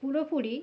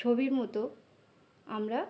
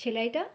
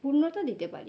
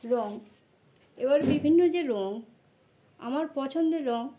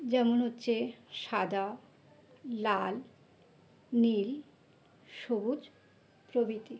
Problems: none marked